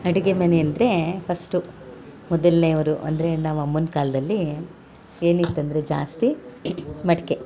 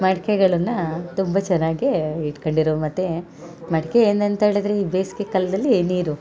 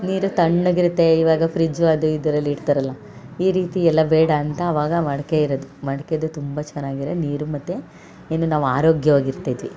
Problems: background sounds at intervals